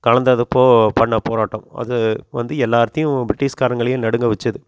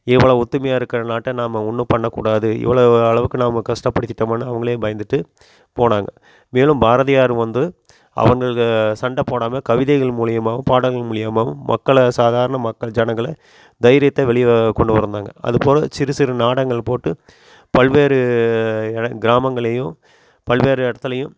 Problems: none marked